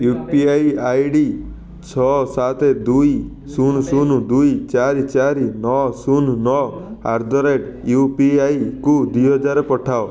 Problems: continuous background conversations